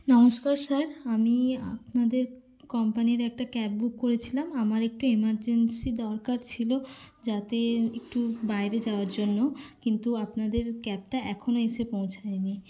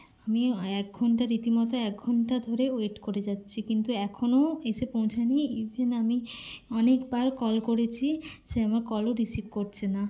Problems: constant background noise, background conversations at intervals